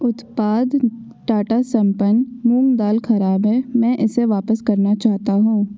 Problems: echo